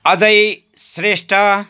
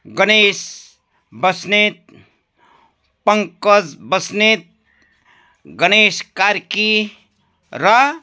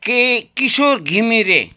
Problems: background sounds at intervals